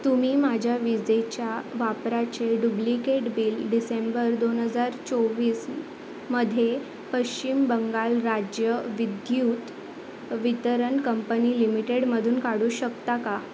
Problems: constant background noise